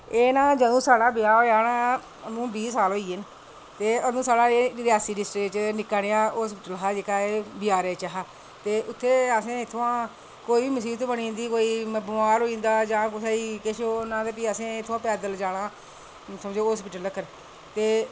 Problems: none marked